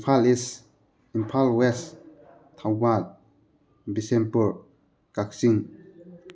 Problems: background sounds at intervals, background conversations at intervals